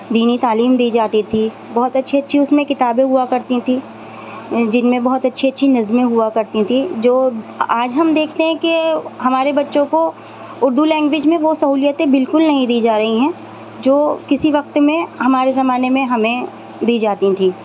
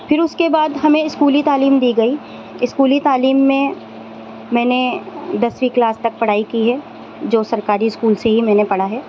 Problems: constant background noise